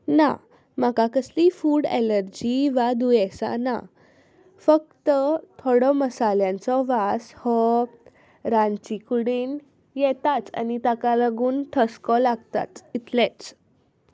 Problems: none marked